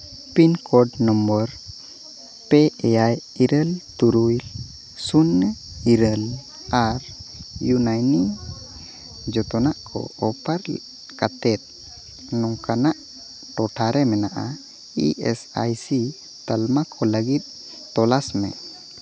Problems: constant background noise